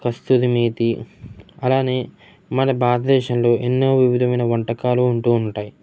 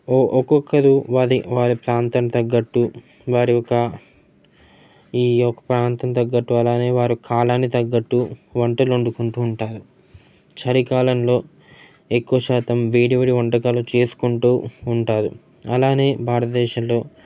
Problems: constant background noise, background conversations at intervals